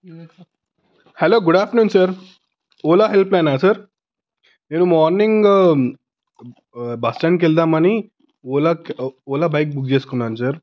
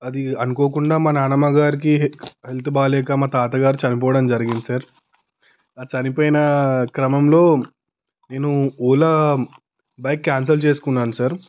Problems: background sounds at intervals